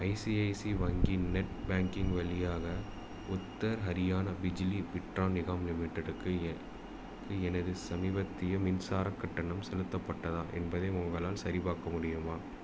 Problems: none marked